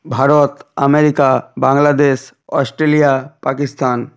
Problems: none marked